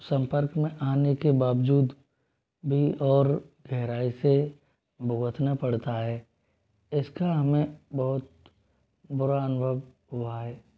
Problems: none marked